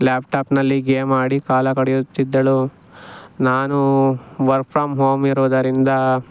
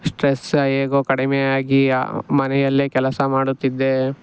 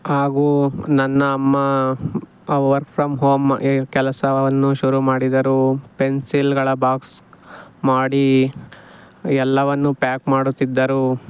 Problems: background sounds at intervals